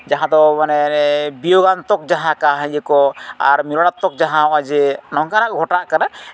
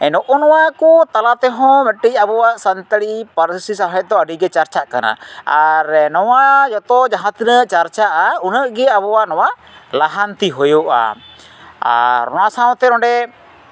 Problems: none marked